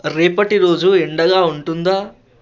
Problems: constant background noise